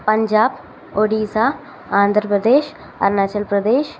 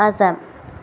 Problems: constant background noise